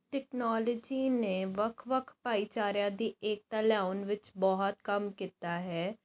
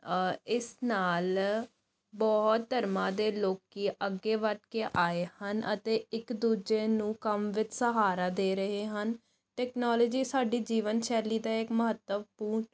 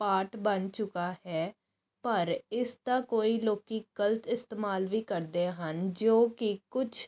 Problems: none marked